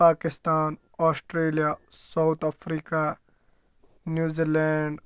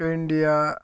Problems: low volume